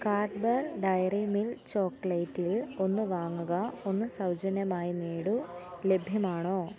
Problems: background sounds at intervals, background conversations at intervals, low volume